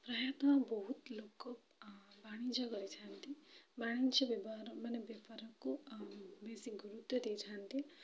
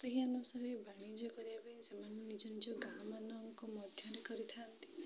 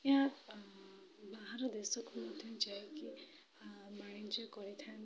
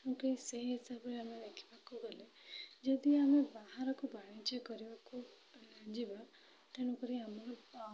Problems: low volume